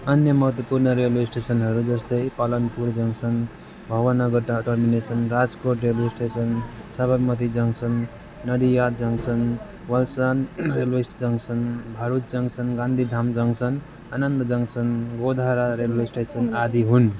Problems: constant background noise, continuous background conversations